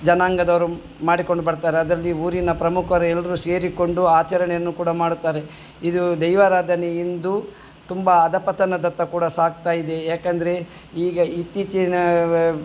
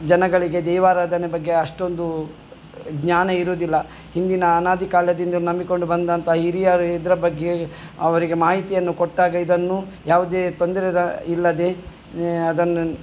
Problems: none marked